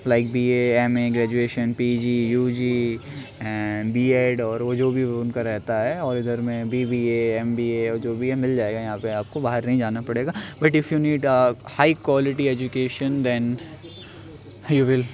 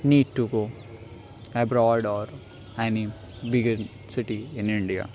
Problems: constant background noise